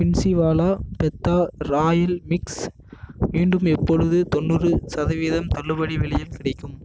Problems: none marked